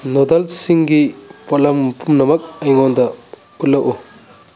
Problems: none marked